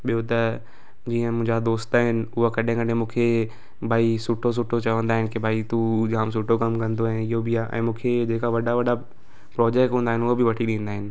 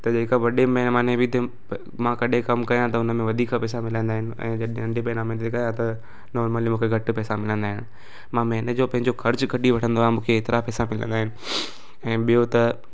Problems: constant background noise